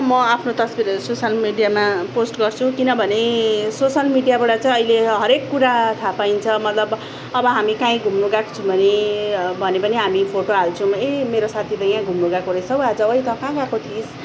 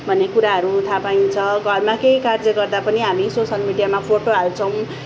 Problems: background sounds at intervals